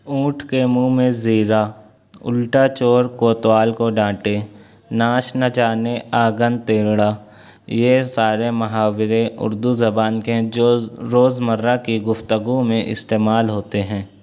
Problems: none marked